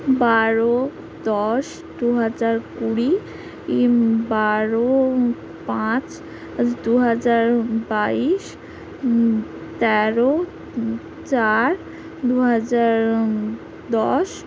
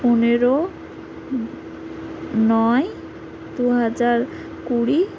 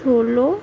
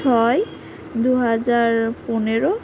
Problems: constant background noise